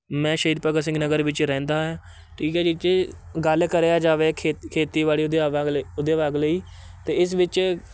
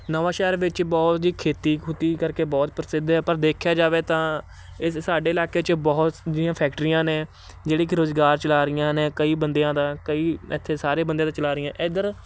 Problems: constant background noise